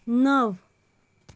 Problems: constant background noise